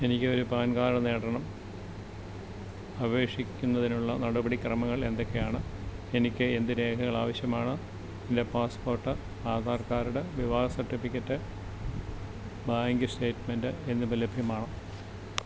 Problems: constant background noise